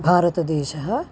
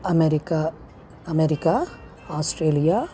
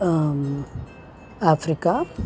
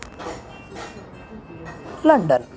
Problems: constant background noise